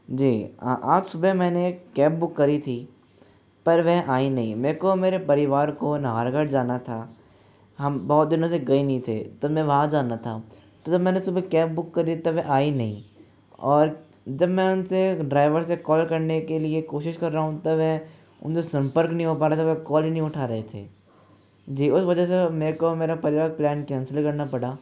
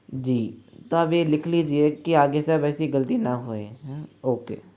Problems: none marked